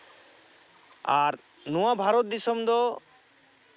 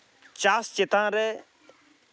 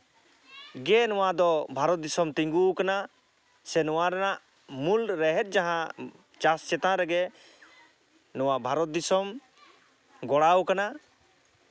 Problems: none marked